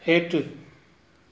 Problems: constant background noise